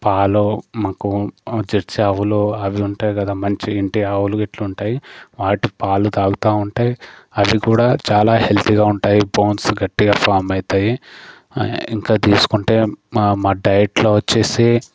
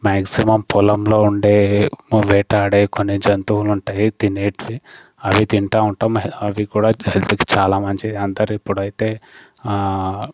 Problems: constant background noise